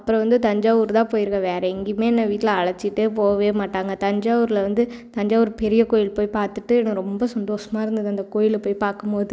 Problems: none marked